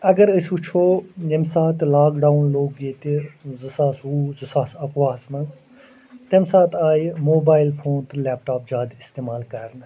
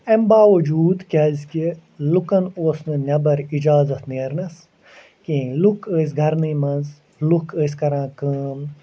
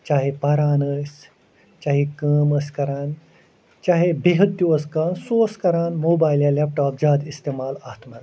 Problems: constant background noise